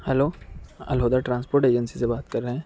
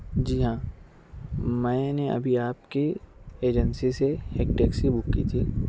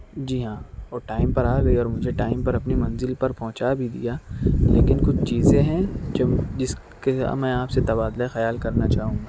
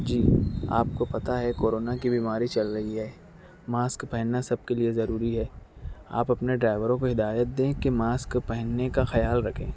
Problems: none marked